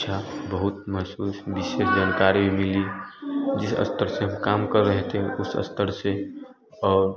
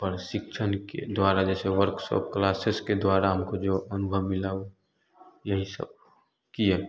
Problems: constant background noise, continuous background conversations